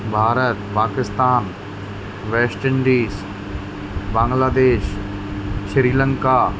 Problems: constant background noise